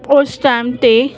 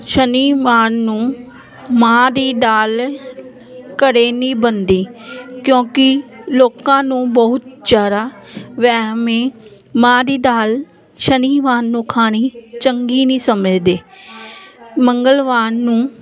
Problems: none marked